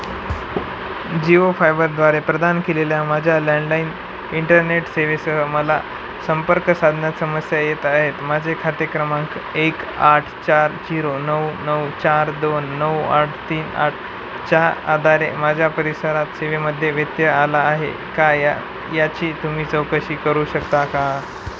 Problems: constant background noise